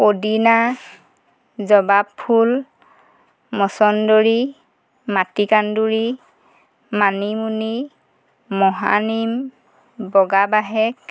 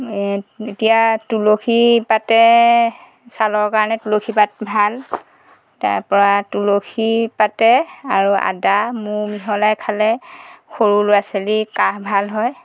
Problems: background sounds at intervals